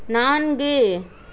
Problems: none marked